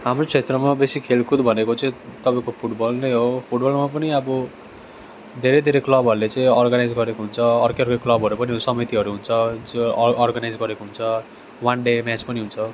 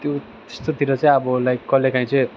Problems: none marked